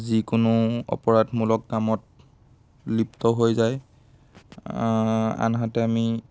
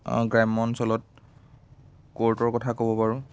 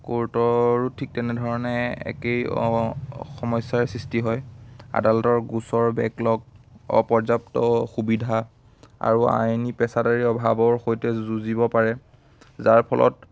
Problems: constant background noise